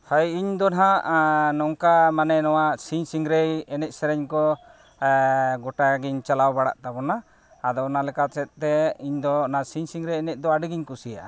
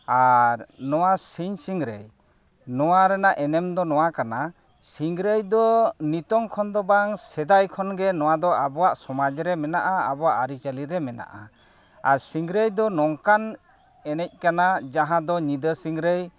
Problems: none marked